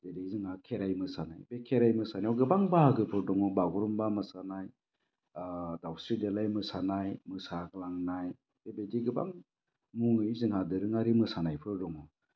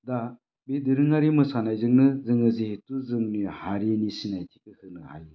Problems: low volume